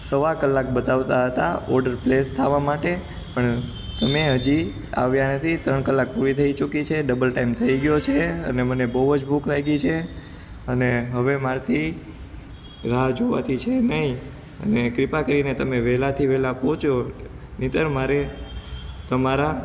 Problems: constant background noise